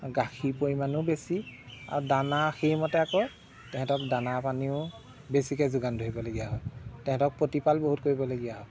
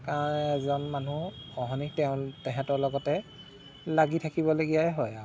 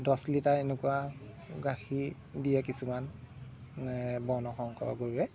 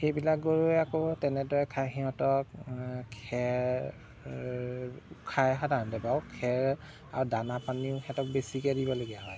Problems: background sounds at intervals